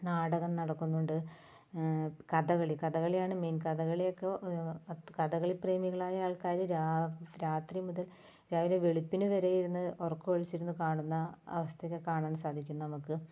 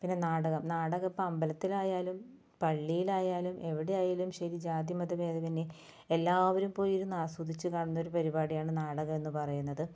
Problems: low volume